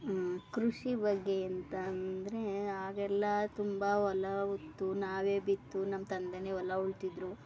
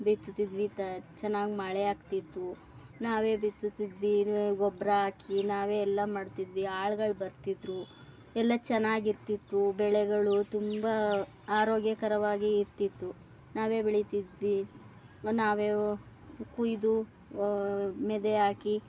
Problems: none marked